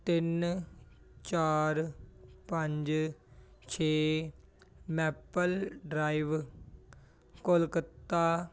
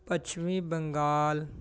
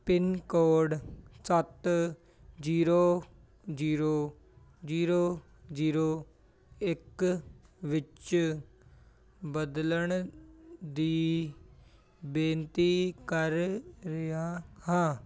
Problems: continuous background conversations